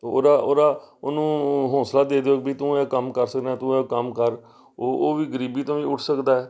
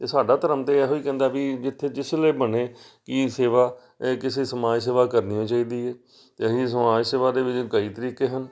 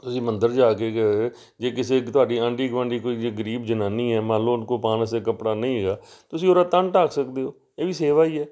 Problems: none marked